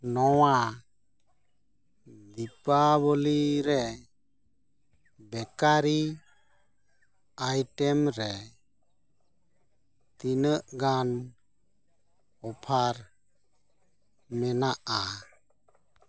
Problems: none marked